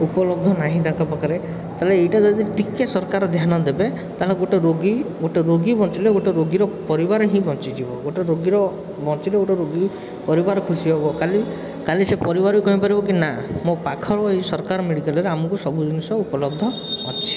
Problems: constant background noise